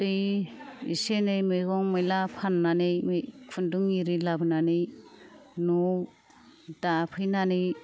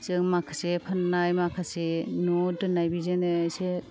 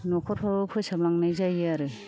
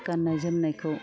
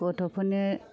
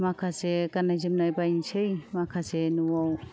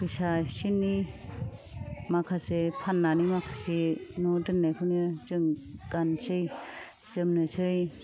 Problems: none marked